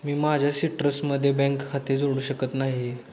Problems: none marked